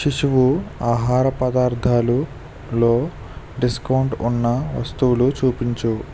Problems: constant background noise